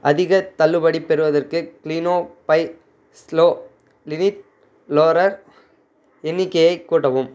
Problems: constant background noise